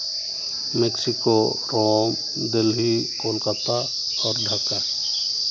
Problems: constant background noise